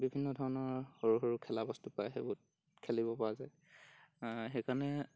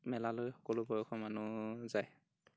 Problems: background sounds at intervals